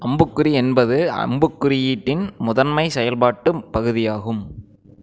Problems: none marked